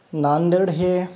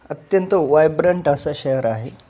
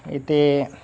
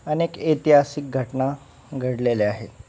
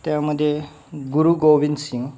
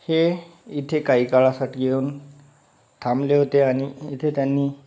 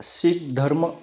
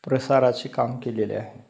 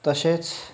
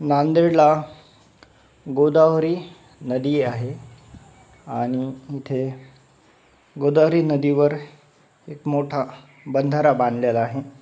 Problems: background sounds at intervals